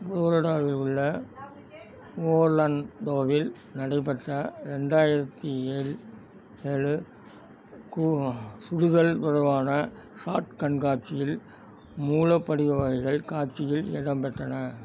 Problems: background sounds at intervals, background conversations at intervals